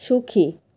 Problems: constant background noise